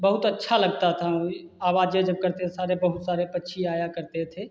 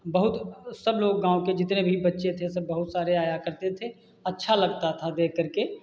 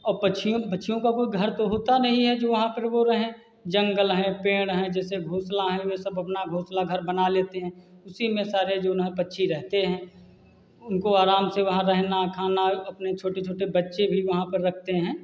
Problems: constant background noise, background conversations at intervals